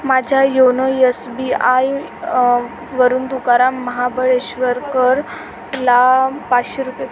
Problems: constant background noise, background conversations at intervals